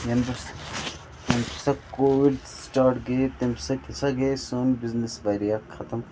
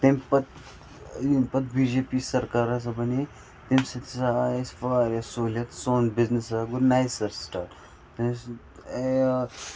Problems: constant background noise, low volume